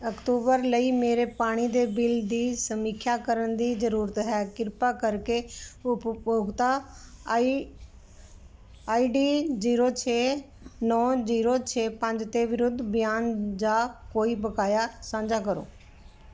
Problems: none marked